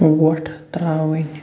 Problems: none marked